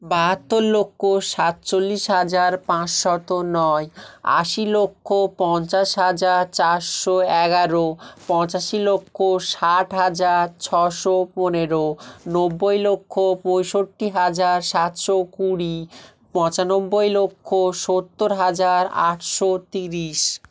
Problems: none marked